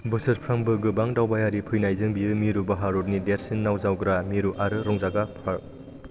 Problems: none marked